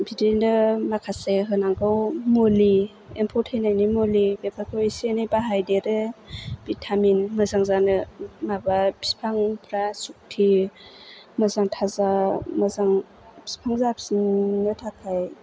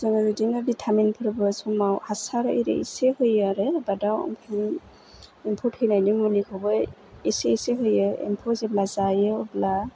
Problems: none marked